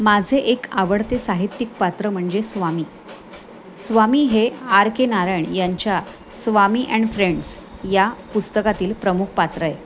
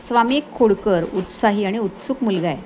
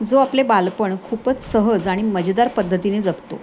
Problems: none marked